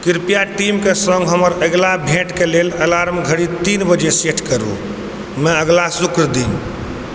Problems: constant background noise